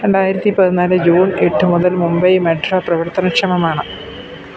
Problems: background sounds at intervals